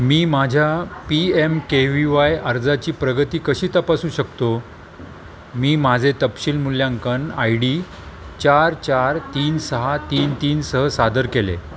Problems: constant background noise, continuous background conversations